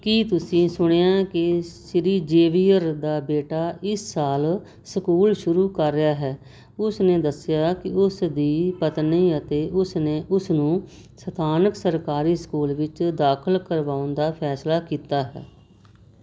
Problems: none marked